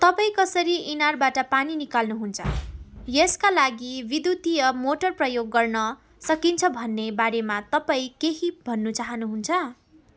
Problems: background conversations at intervals